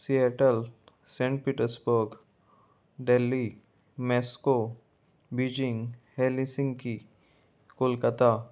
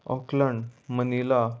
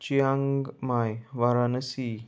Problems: none marked